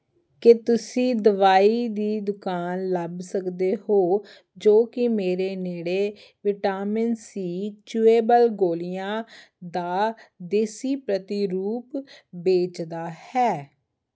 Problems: none marked